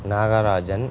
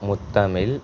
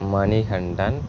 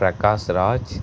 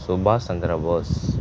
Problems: background sounds at intervals